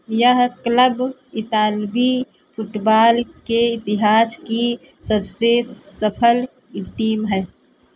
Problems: none marked